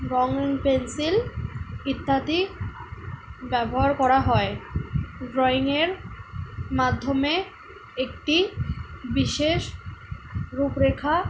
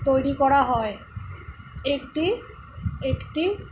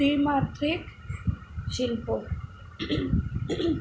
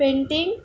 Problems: background sounds at intervals